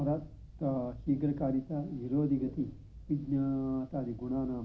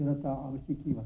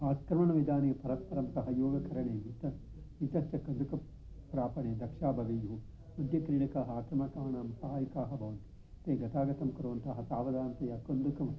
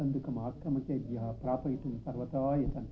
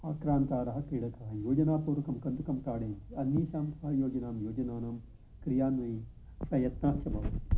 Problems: low volume